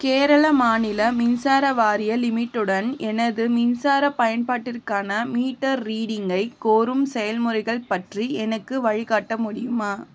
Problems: constant background noise